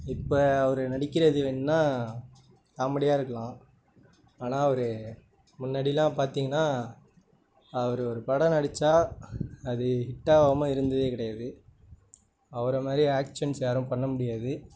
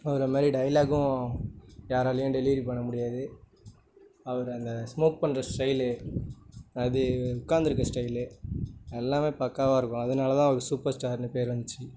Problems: none marked